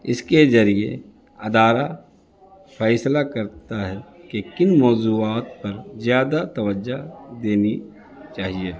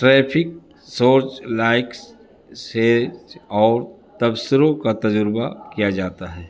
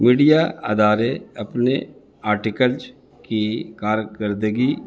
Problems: constant background noise